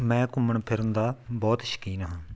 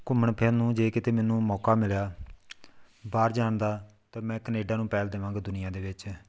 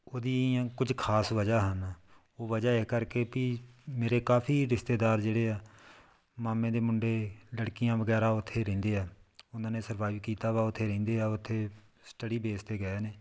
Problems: none marked